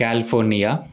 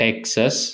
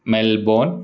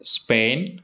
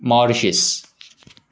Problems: constant background noise